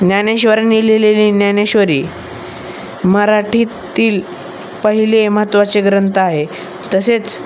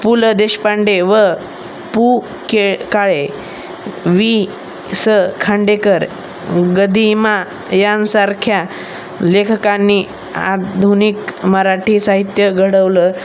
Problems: constant background noise, background conversations at intervals